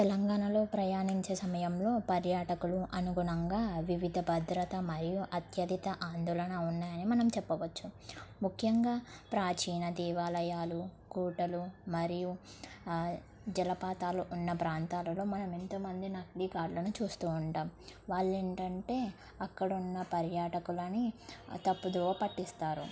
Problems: low volume